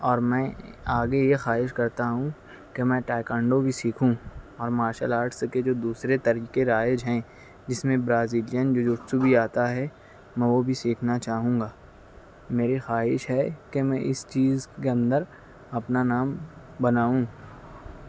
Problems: none marked